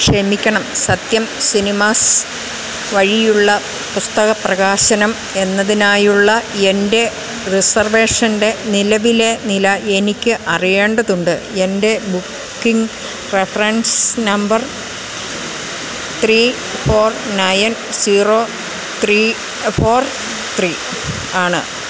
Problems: constant background noise